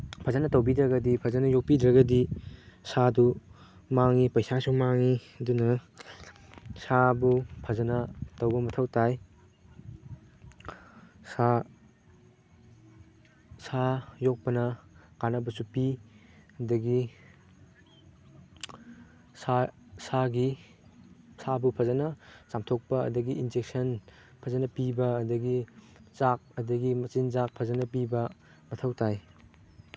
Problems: background sounds at intervals